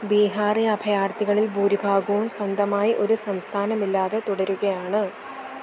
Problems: constant background noise